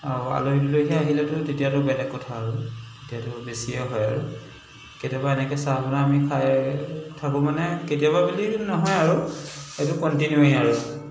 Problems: constant background noise, echo